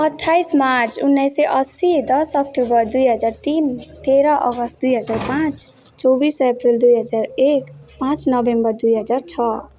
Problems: background sounds at intervals, background conversations at intervals